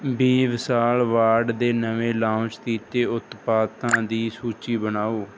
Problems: background sounds at intervals